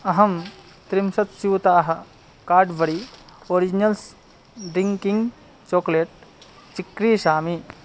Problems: constant background noise